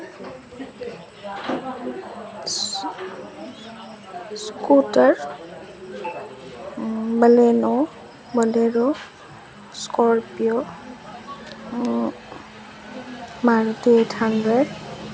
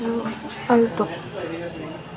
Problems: constant background noise